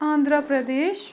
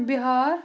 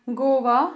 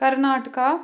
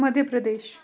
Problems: background sounds at intervals